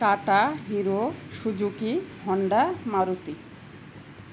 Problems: none marked